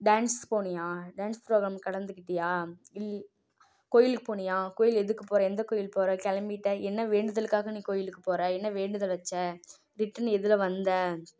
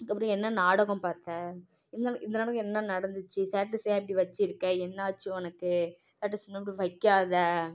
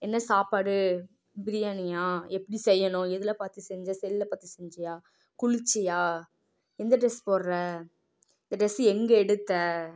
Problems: low volume